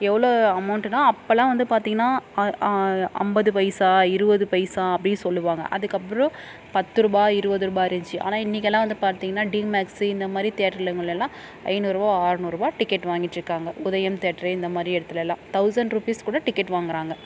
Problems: background sounds at intervals, background conversations at intervals